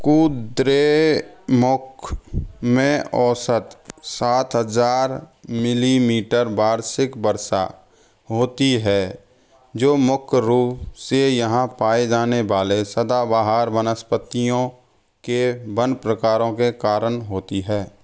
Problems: none marked